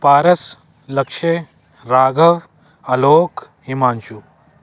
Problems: constant background noise